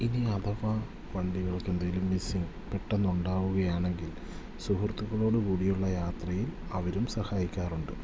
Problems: background sounds at intervals